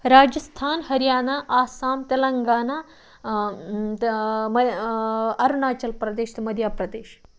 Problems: background sounds at intervals